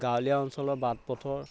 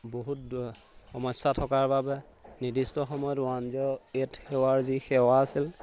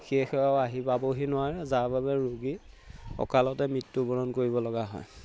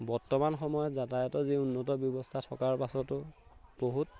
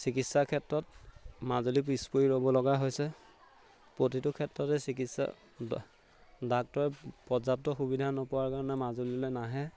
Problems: none marked